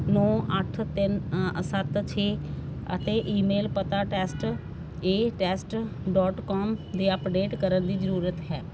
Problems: constant background noise